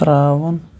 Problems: constant background noise